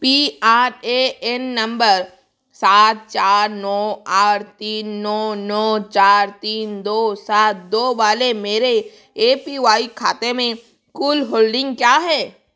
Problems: background sounds at intervals